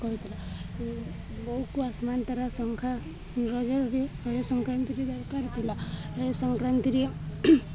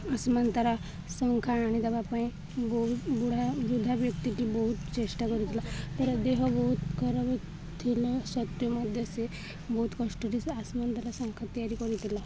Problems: constant background noise, continuous background conversations